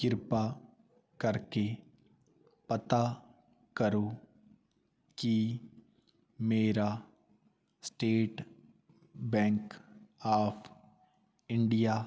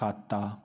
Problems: background sounds at intervals